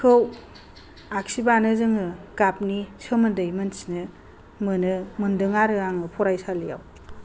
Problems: low volume